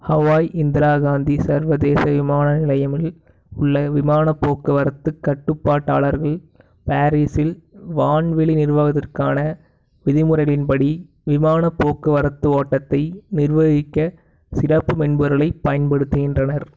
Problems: background sounds at intervals